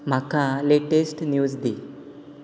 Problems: constant background noise